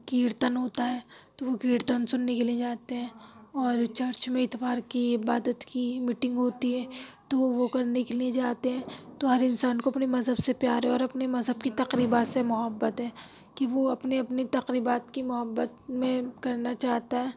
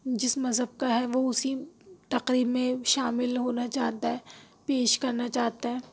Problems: none marked